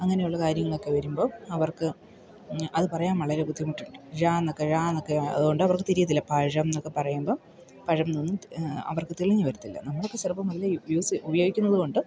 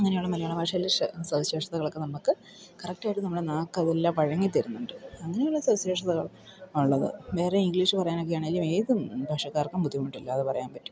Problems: none marked